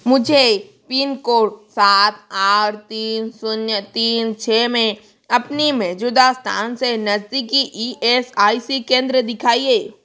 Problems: constant background noise